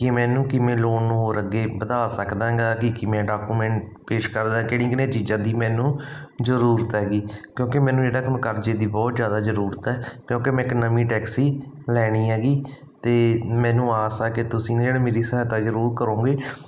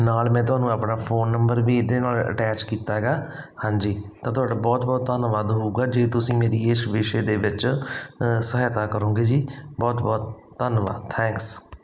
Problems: none marked